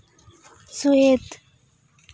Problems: none marked